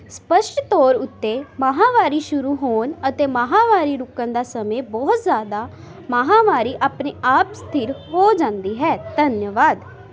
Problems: constant background noise